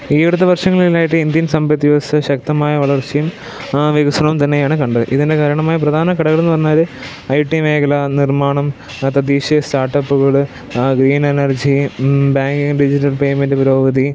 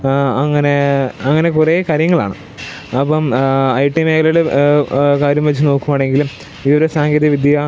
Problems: background sounds at intervals, low volume